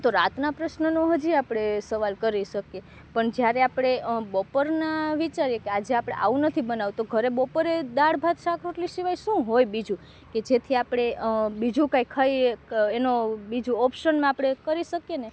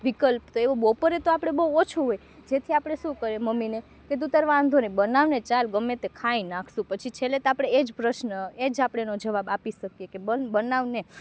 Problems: background sounds at intervals